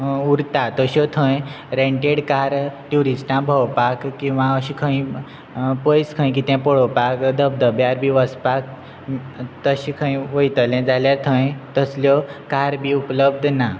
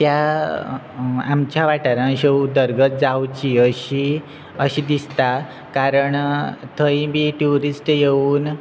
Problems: constant background noise